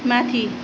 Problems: constant background noise